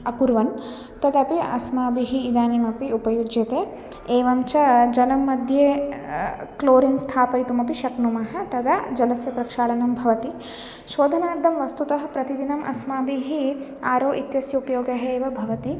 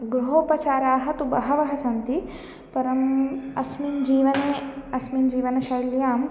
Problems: background sounds at intervals